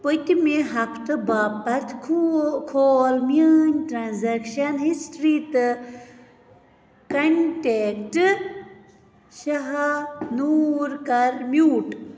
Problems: none marked